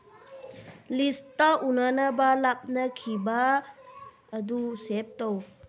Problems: background conversations at intervals